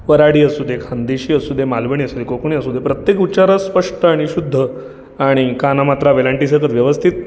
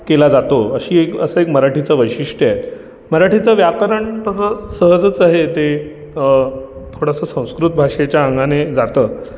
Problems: none marked